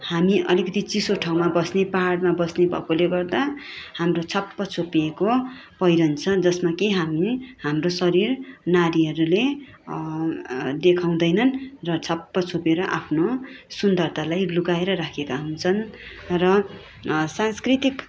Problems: constant background noise